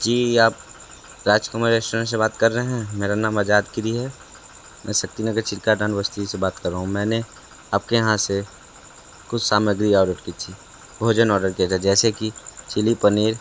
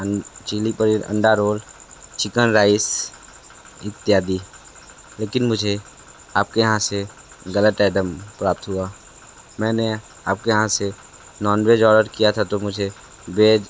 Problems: constant background noise